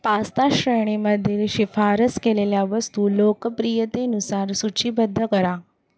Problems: constant background noise